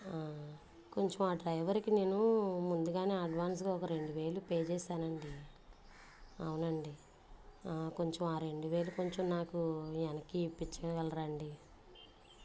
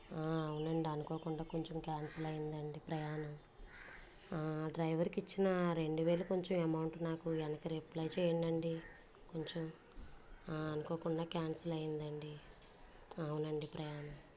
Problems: background sounds at intervals, low volume